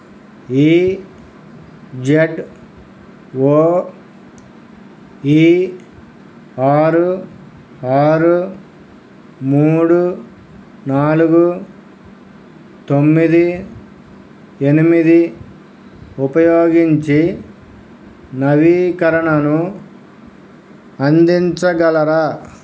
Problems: none marked